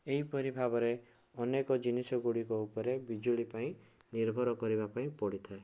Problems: none marked